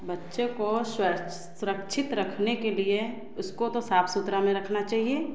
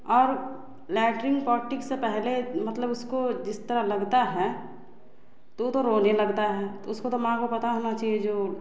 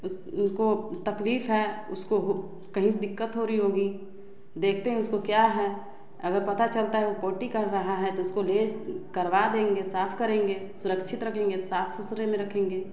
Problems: background sounds at intervals, background conversations at intervals, echo